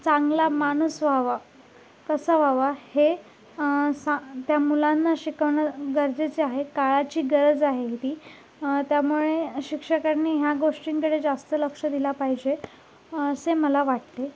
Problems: none marked